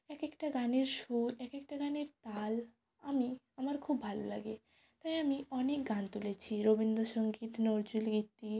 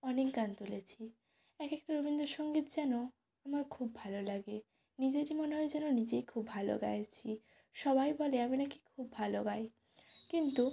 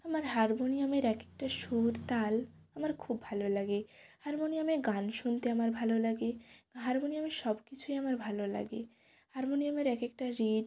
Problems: none marked